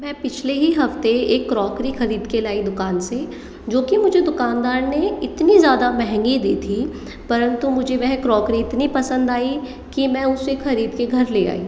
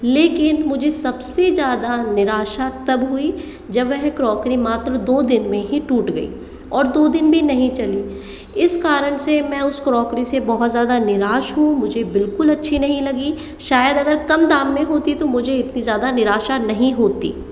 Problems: echo